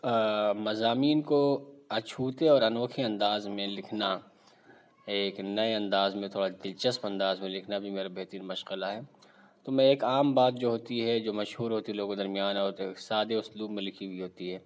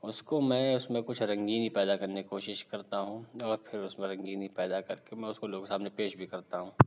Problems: none marked